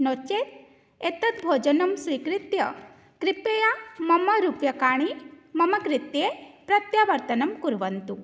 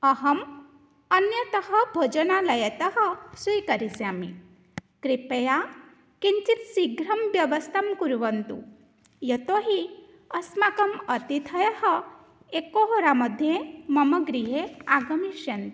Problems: none marked